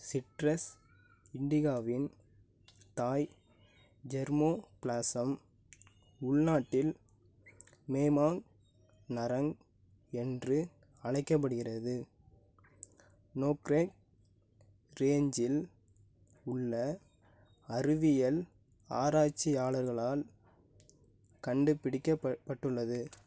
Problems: low volume